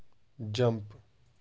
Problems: constant background noise, low volume